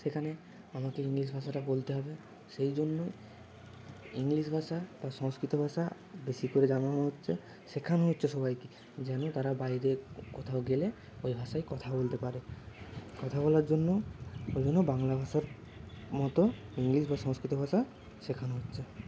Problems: none marked